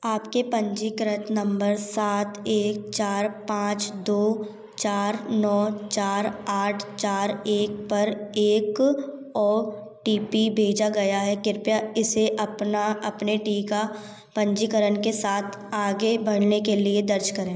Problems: background sounds at intervals